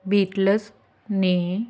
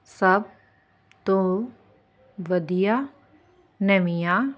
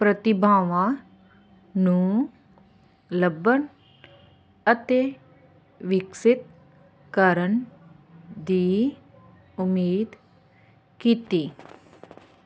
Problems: constant background noise